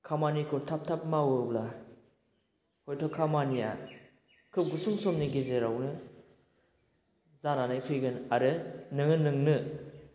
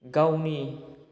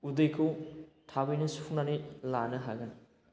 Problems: constant background noise